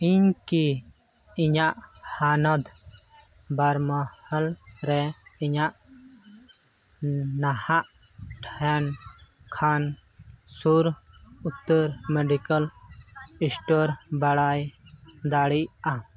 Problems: background sounds at intervals, background conversations at intervals